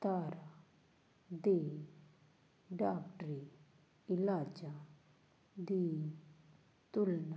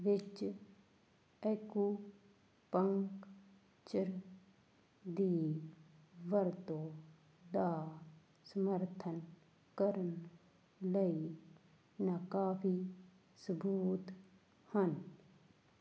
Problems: constant background noise